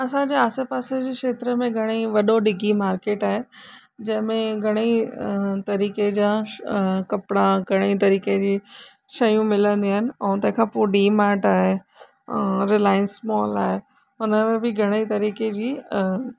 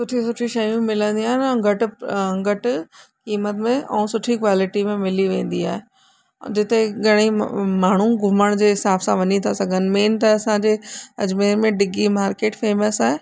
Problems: constant background noise